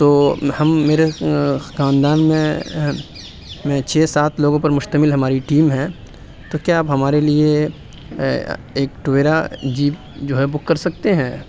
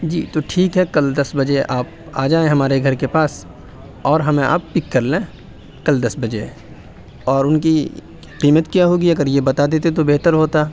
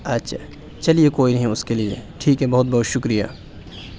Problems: none marked